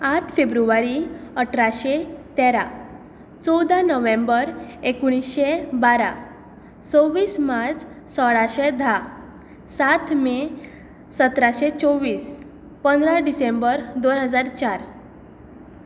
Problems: background sounds at intervals